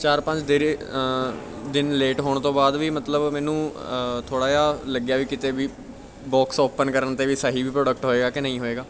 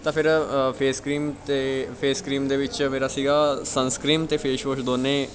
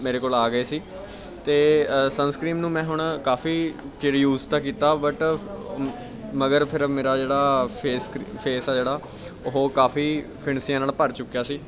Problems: background conversations at intervals